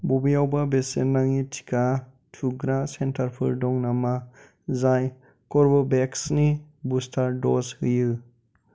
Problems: constant background noise